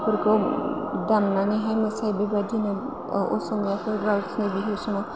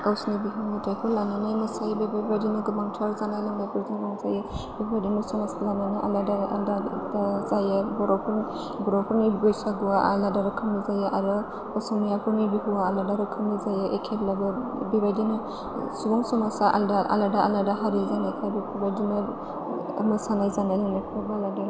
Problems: constant background noise